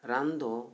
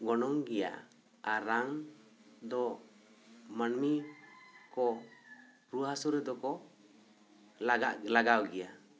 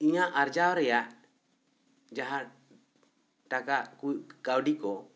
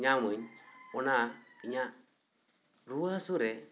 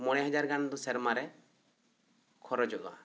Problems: none marked